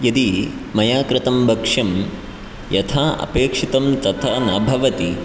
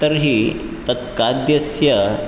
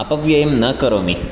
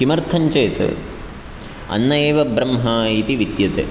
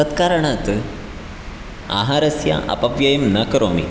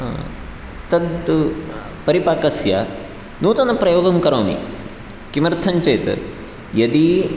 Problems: none marked